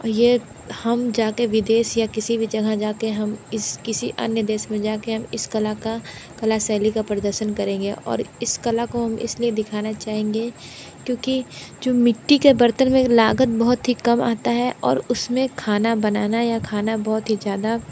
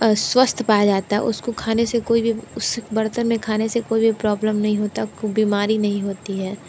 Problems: constant background noise